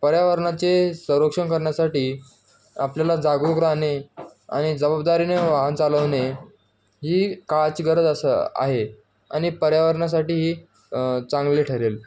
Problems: none marked